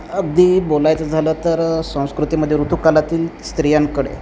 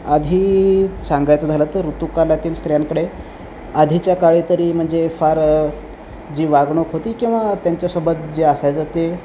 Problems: none marked